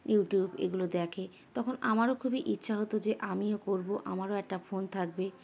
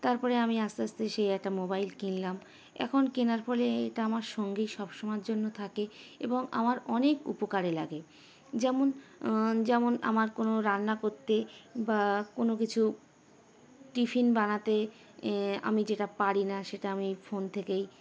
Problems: constant background noise